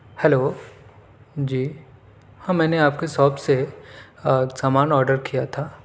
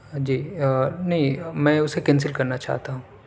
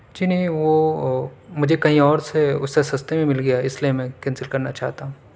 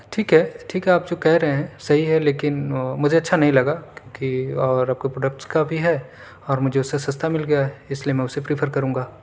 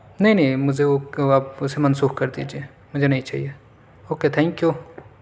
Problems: none marked